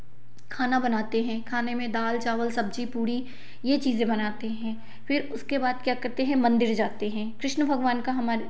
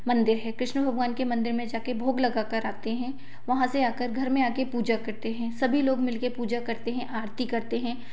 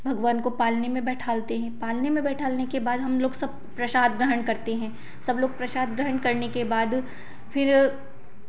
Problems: none marked